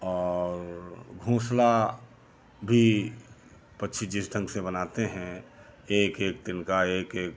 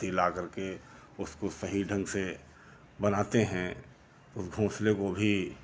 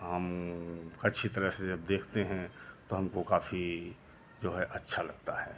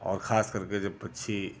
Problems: none marked